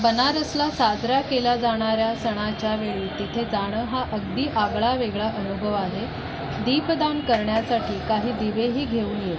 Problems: none marked